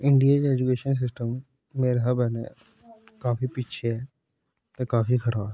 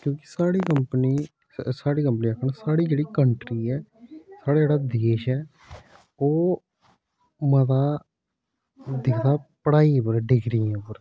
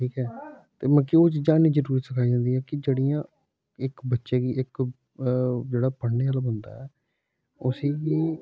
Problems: background sounds at intervals